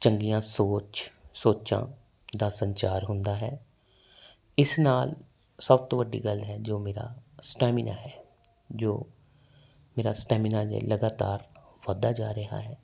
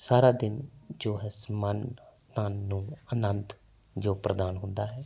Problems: background sounds at intervals